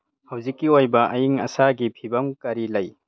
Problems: low volume